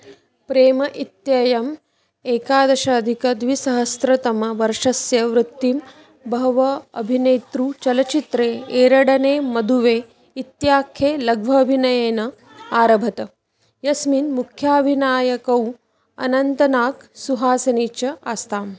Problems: background sounds at intervals